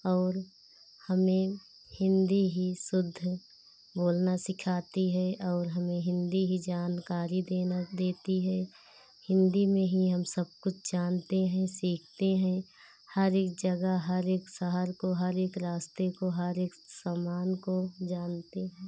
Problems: none marked